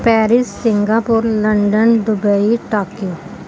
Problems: none marked